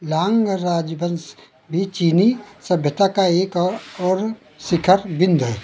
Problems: constant background noise